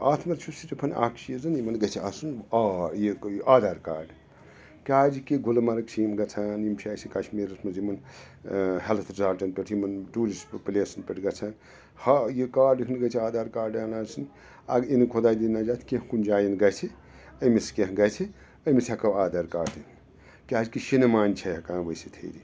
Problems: background sounds at intervals, background conversations at intervals